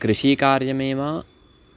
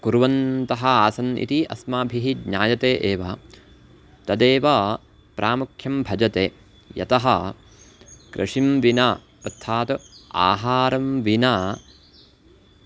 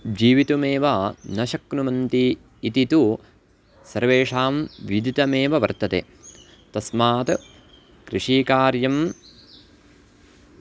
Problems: background sounds at intervals